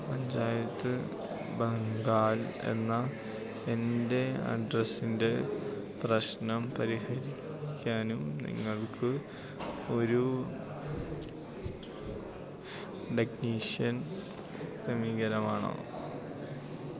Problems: constant background noise, low volume